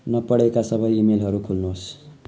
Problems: none marked